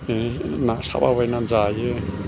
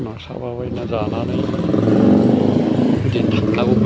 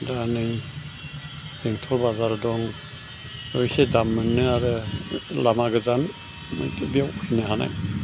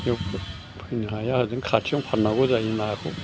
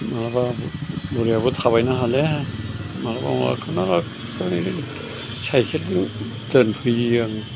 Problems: constant background noise